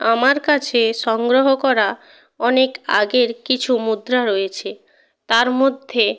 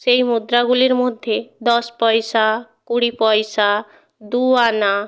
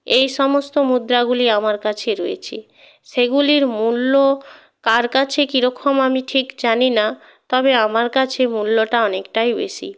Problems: background sounds at intervals, background conversations at intervals